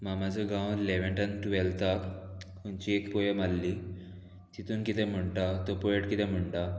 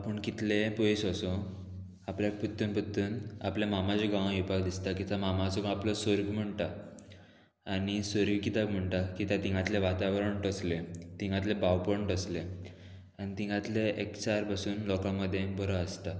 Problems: constant background noise